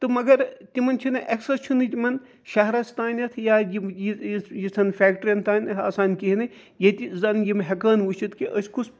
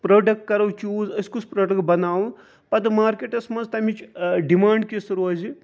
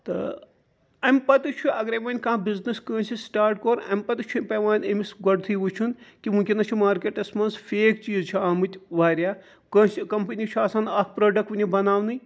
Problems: constant background noise